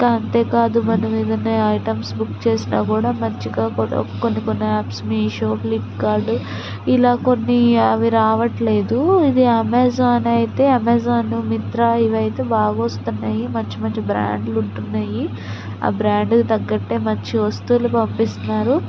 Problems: constant background noise